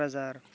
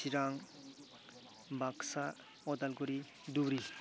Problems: low volume